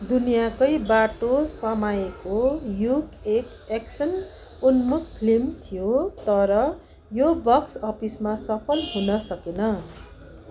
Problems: none marked